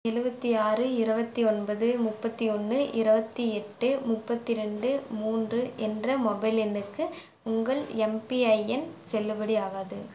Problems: background sounds at intervals